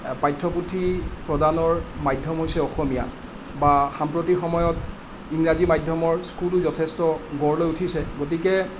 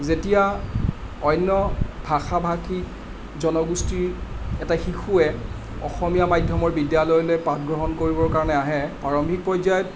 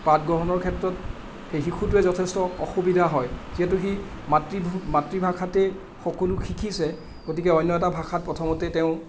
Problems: none marked